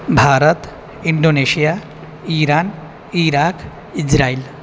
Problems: none marked